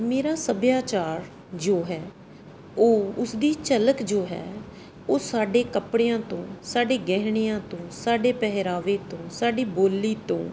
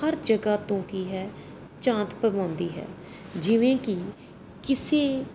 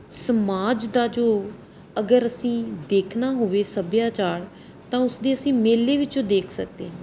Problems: background sounds at intervals